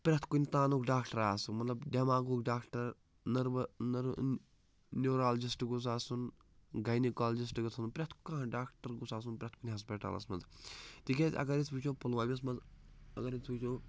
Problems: none marked